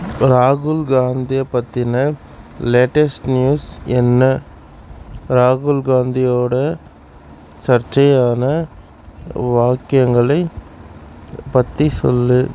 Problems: none marked